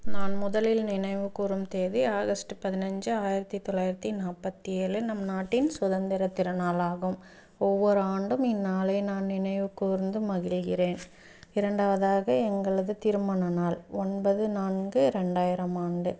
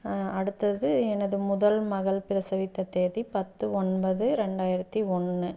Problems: background sounds at intervals